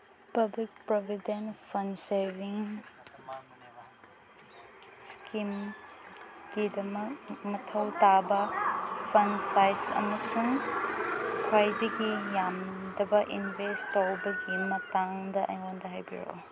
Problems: low volume